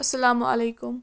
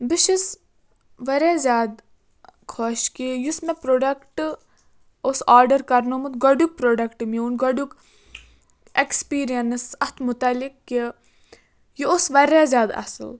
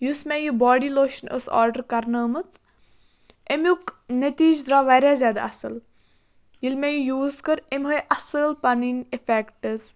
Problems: background sounds at intervals